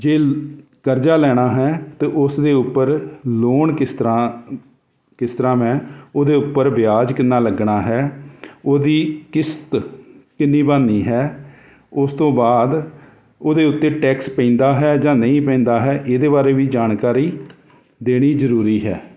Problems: constant background noise